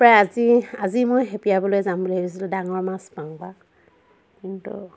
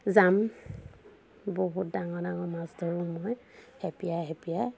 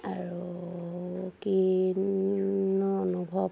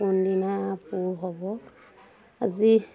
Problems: constant background noise, continuous background conversations